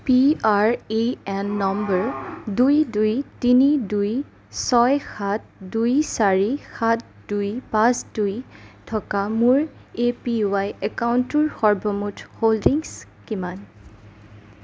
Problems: background sounds at intervals